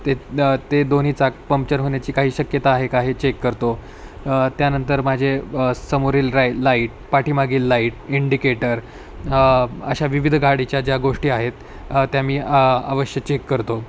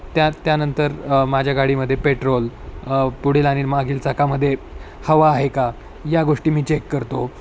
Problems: constant background noise